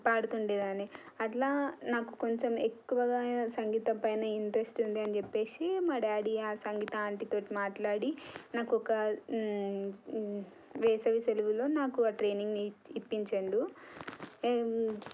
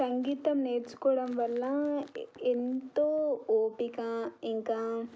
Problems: none marked